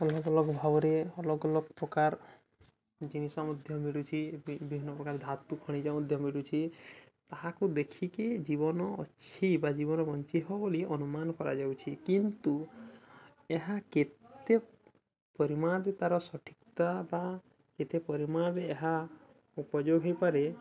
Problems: constant background noise, continuous background conversations